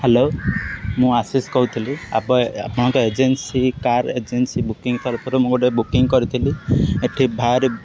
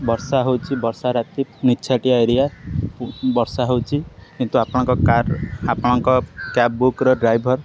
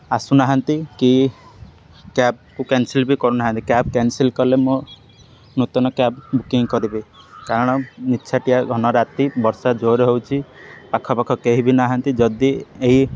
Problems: constant background noise